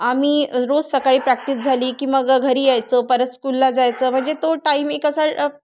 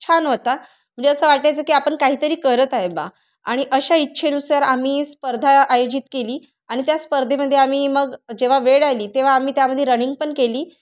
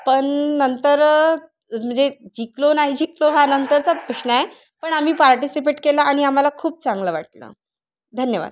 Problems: constant background noise, background conversations at intervals